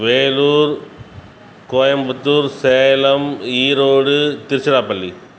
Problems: none marked